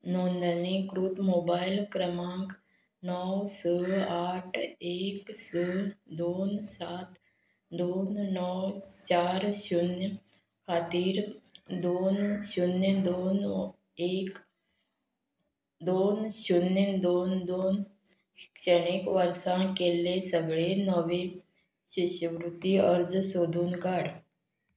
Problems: background sounds at intervals